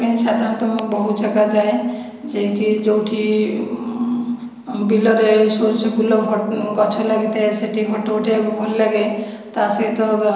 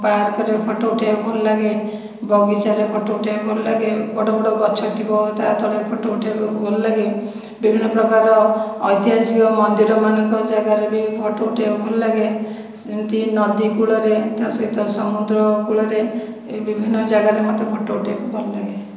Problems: echo